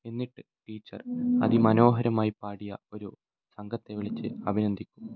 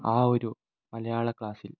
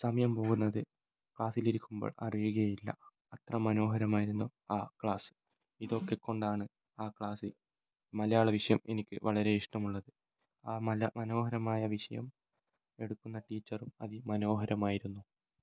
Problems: low volume